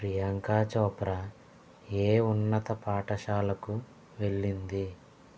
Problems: constant background noise, low volume